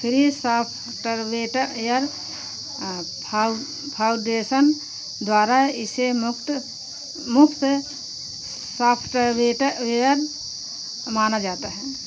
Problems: none marked